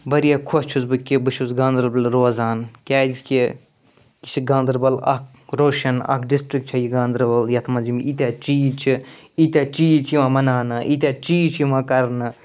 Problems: none marked